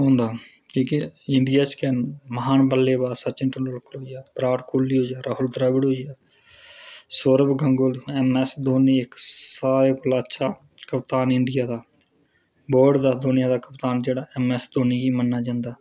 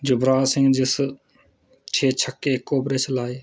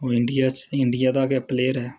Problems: none marked